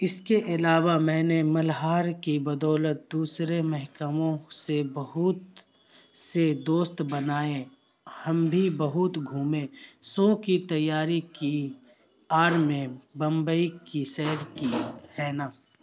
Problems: constant background noise